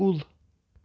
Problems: none marked